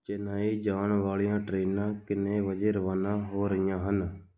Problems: none marked